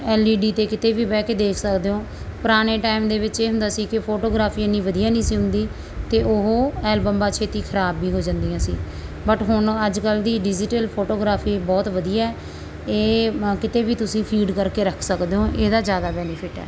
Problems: background sounds at intervals